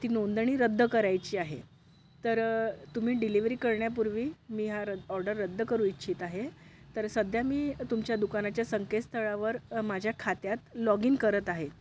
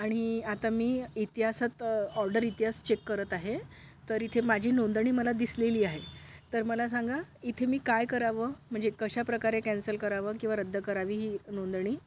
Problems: none marked